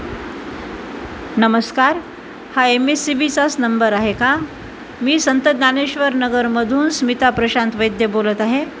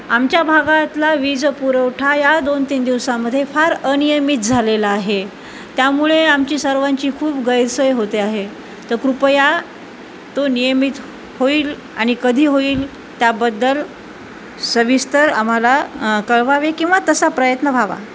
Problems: constant background noise